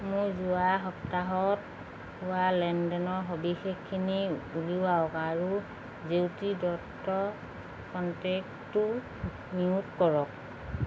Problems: constant background noise, background conversations at intervals